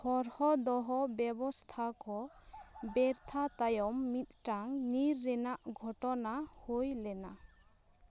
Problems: background conversations at intervals